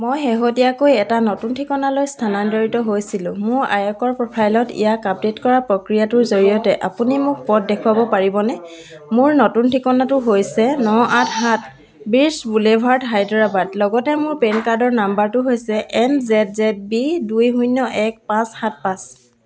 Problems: none marked